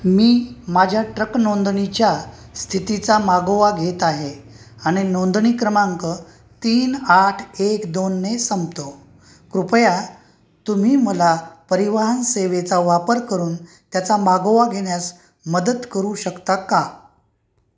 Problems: background sounds at intervals